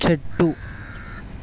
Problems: none marked